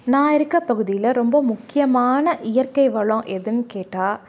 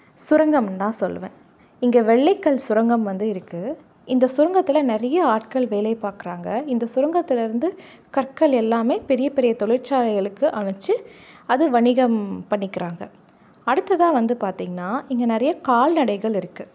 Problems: none marked